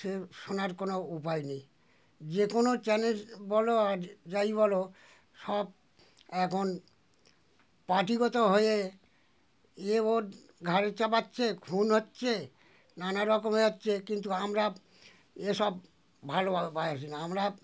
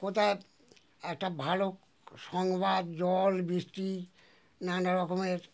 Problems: none marked